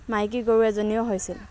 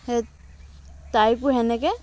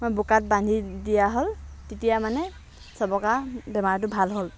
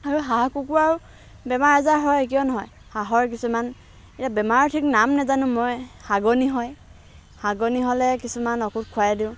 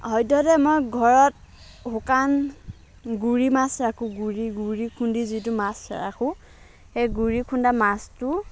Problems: background sounds at intervals, background conversations at intervals